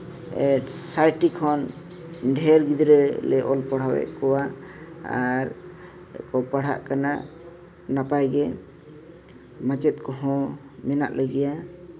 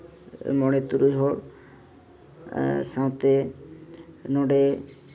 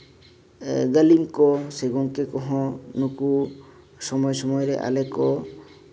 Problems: constant background noise